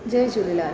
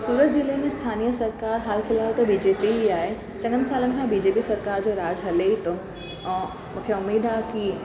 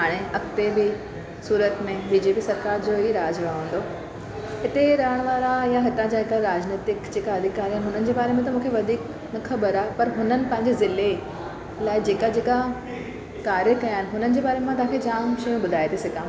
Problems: constant background noise